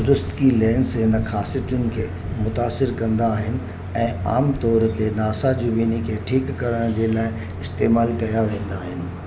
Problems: constant background noise, low volume